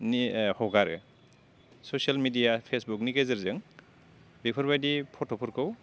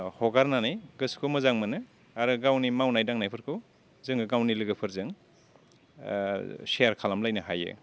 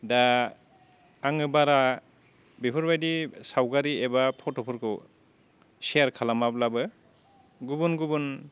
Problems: low volume